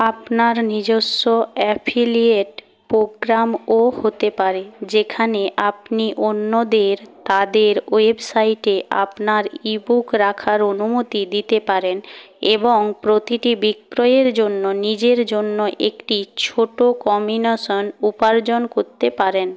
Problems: background sounds at intervals